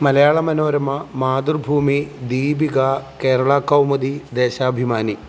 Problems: constant background noise